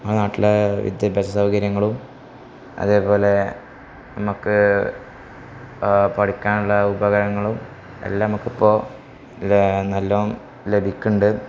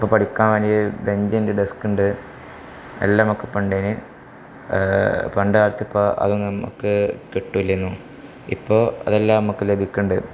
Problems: constant background noise